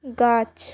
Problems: none marked